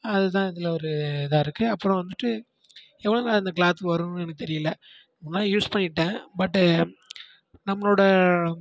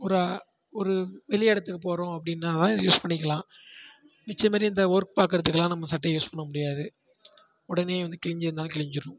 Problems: low volume